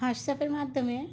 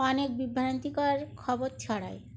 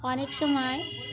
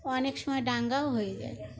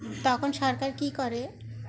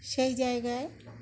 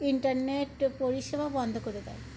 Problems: constant background noise